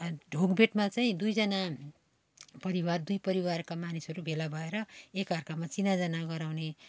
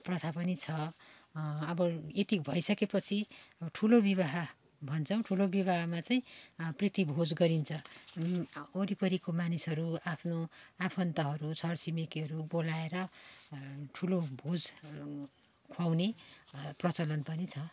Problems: constant background noise